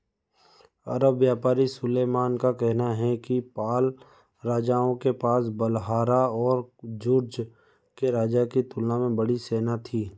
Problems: none marked